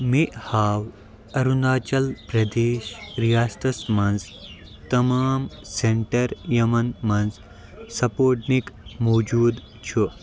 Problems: constant background noise